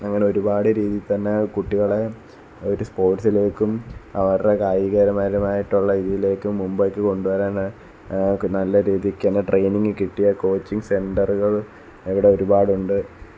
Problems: background sounds at intervals